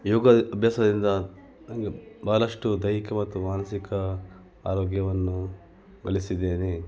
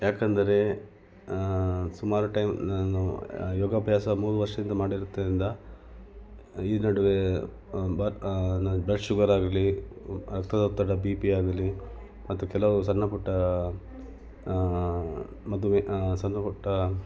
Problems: background sounds at intervals